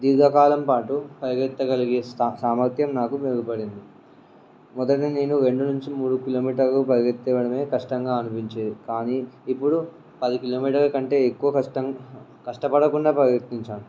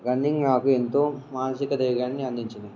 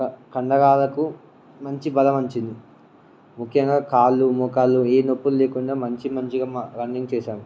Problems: none marked